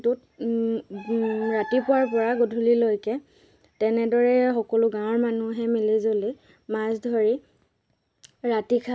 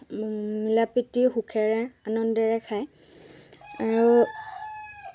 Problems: background sounds at intervals, background conversations at intervals